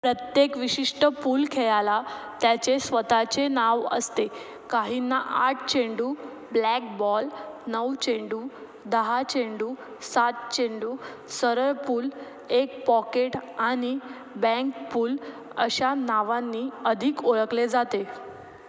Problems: none marked